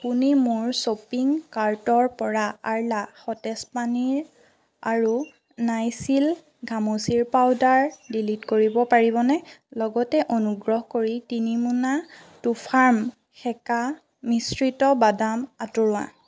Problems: none marked